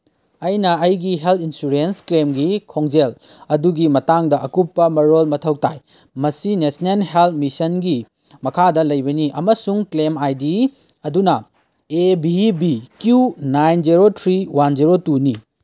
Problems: none marked